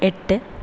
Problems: constant background noise